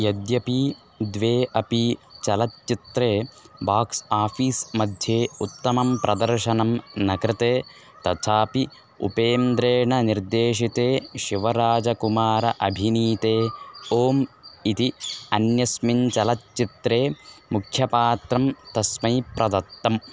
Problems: constant background noise